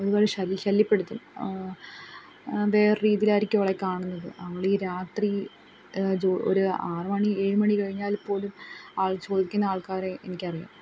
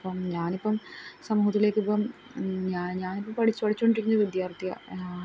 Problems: background sounds at intervals